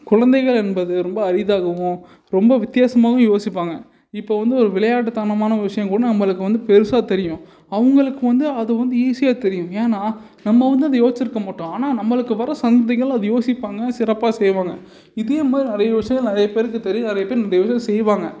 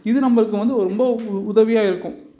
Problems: background sounds at intervals